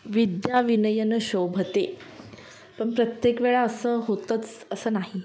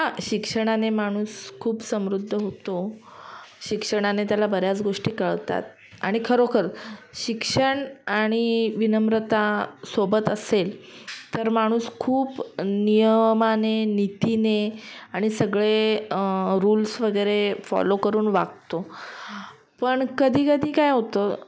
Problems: background sounds at intervals